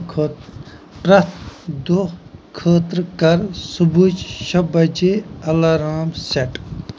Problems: none marked